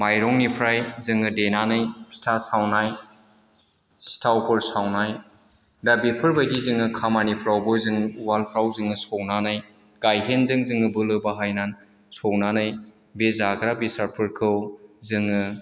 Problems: none marked